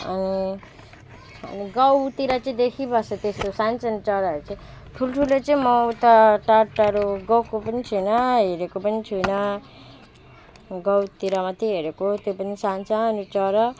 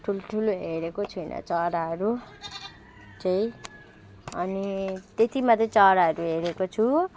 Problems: background sounds at intervals